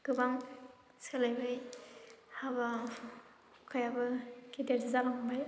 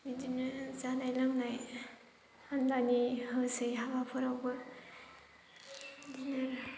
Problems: constant background noise